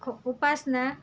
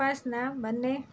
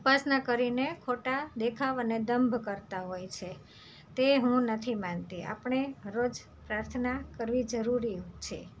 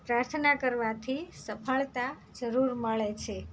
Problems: none marked